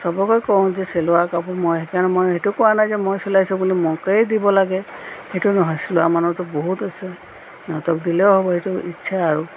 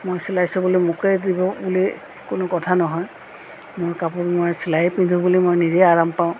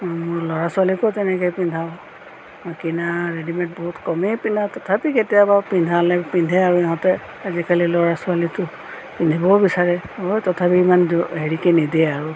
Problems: constant background noise